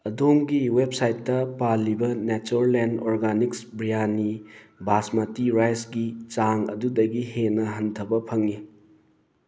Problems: background sounds at intervals